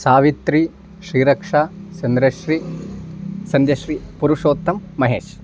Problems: constant background noise